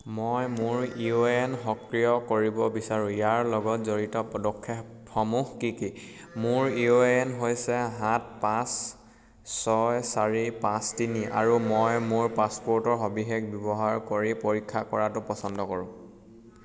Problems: none marked